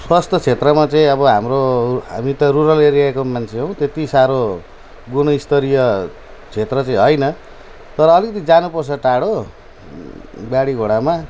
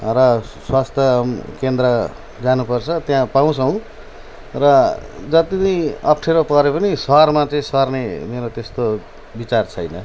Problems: none marked